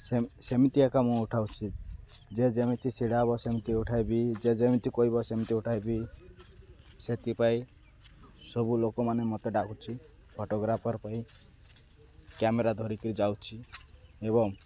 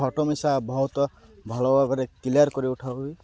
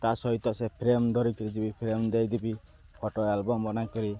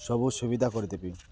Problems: none marked